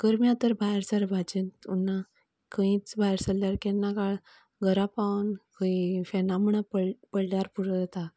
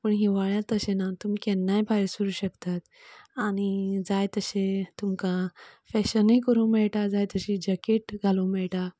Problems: none marked